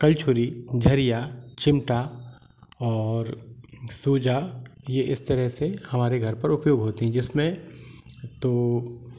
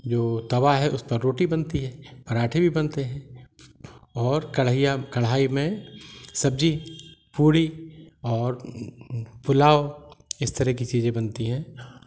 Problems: constant background noise